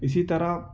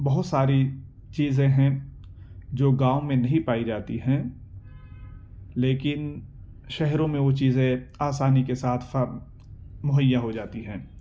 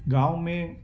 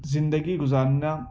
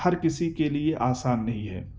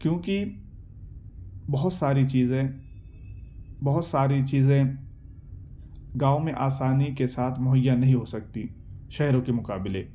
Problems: none marked